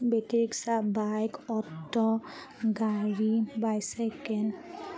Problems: none marked